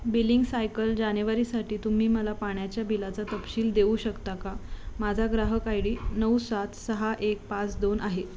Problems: constant background noise